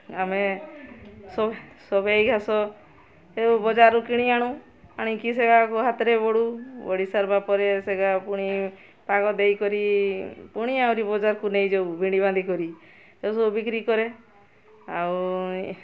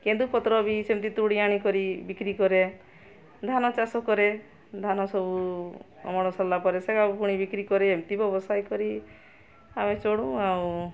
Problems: constant background noise, continuous background conversations